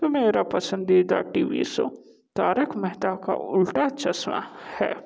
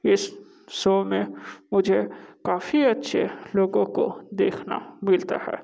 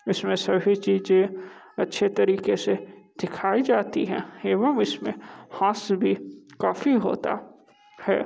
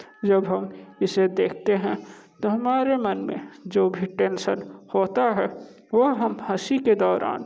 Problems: constant background noise